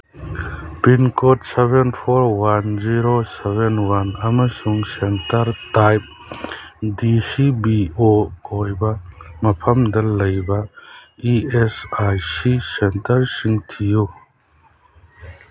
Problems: background sounds at intervals